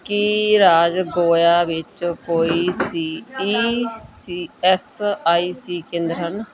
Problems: continuous background conversations